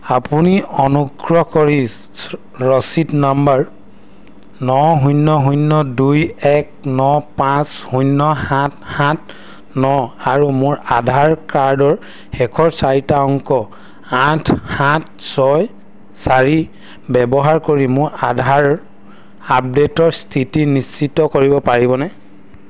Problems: none marked